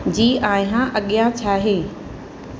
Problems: constant background noise